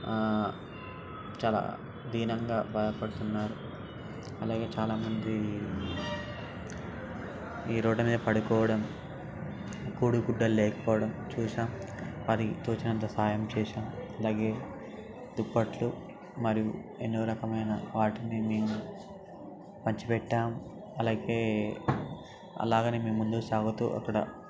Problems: background sounds at intervals